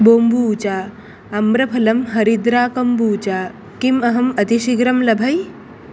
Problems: none marked